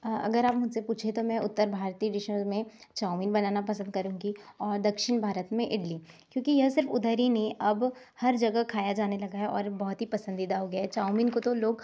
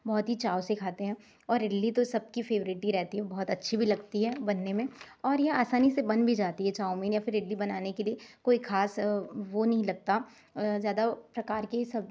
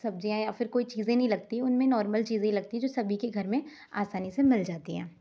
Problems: none marked